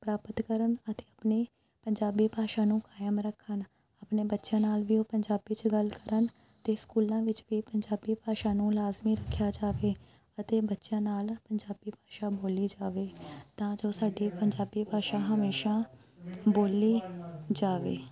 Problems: background sounds at intervals, background conversations at intervals